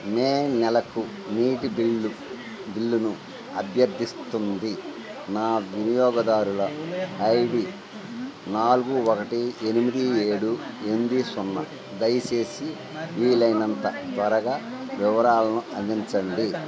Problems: constant background noise